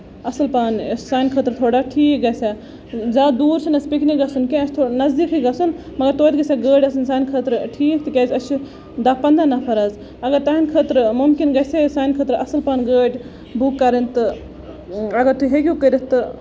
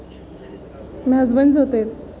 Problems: constant background noise, background conversations at intervals